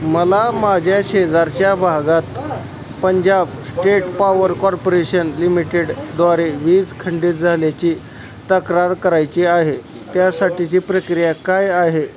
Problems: constant background noise, continuous background conversations